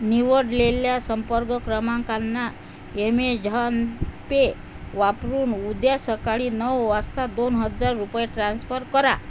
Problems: constant background noise